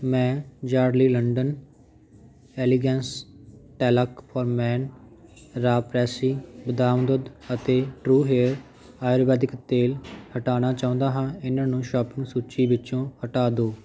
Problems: constant background noise